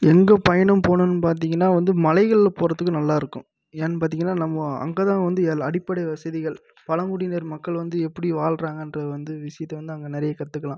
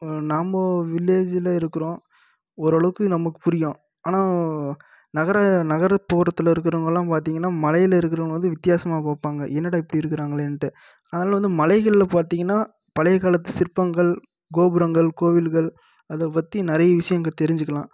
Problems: none marked